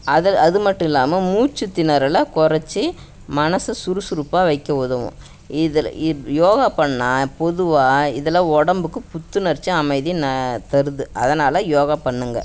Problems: none marked